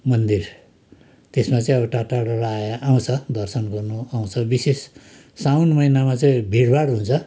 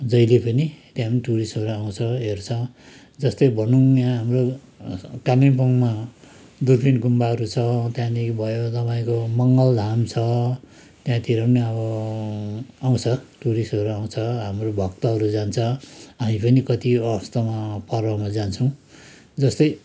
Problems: constant background noise